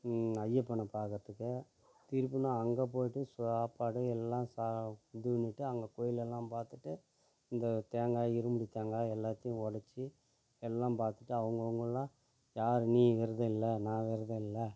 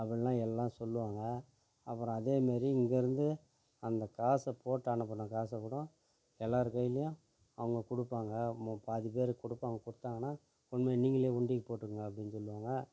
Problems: background sounds at intervals, low volume